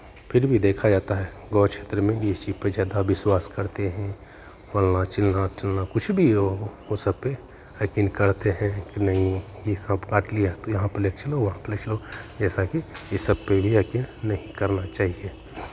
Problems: constant background noise, continuous background conversations, echo